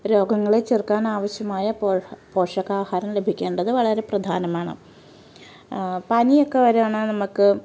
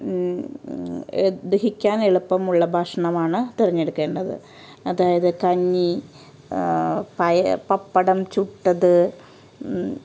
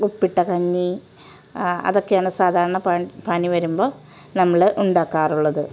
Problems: background sounds at intervals